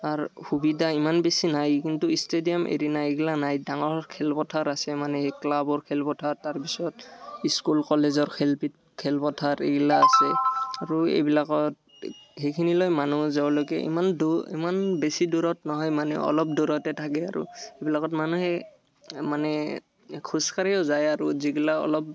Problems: none marked